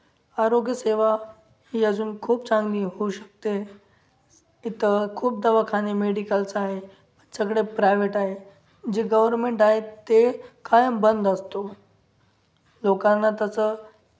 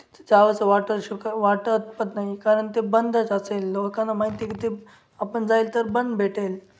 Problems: background sounds at intervals